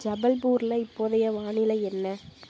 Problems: constant background noise